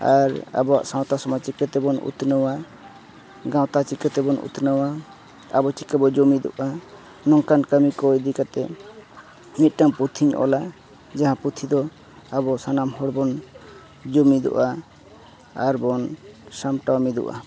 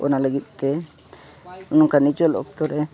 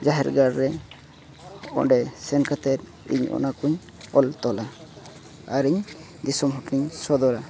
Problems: continuous background conversations